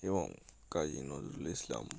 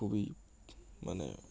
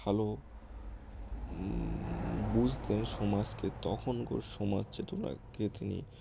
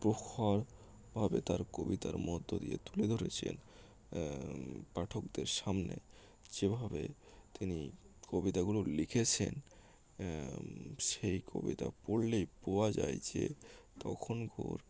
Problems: background sounds at intervals